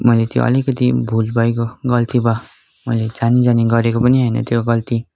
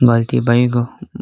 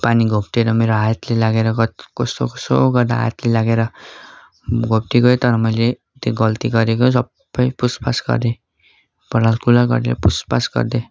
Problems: background sounds at intervals